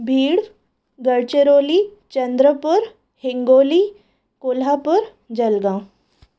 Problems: none marked